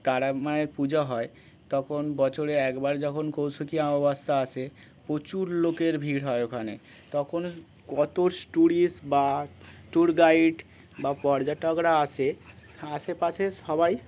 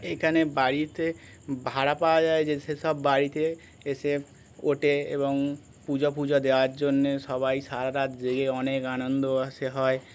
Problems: none marked